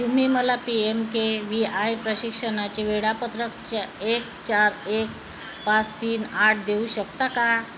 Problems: constant background noise, continuous background conversations